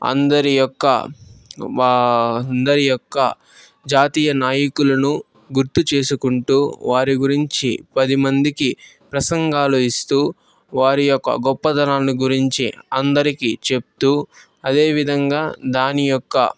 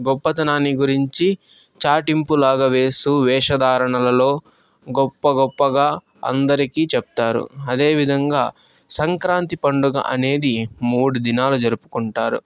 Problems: background sounds at intervals